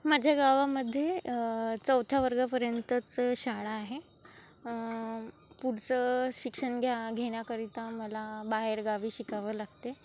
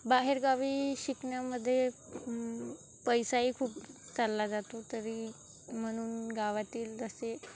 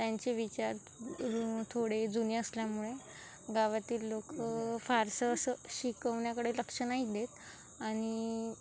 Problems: constant background noise, background conversations at intervals